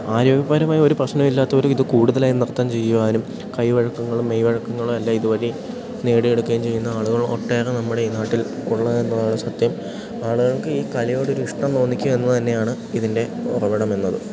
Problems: none marked